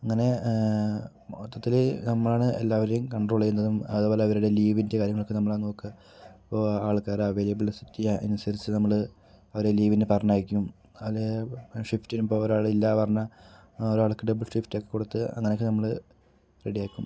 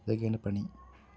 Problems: none marked